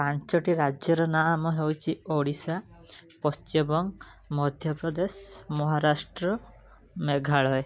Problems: background conversations at intervals